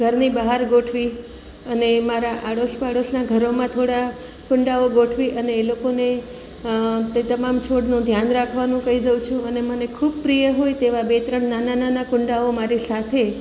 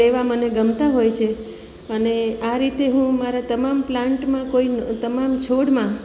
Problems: none marked